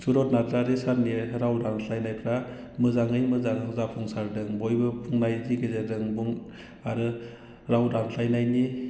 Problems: constant background noise